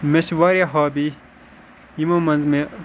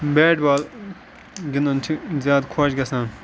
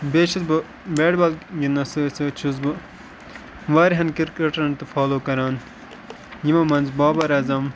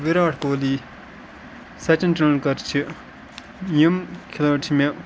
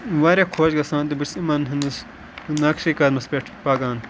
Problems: constant background noise